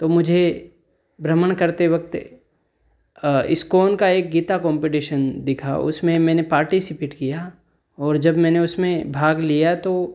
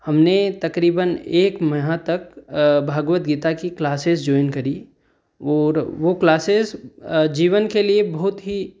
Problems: none marked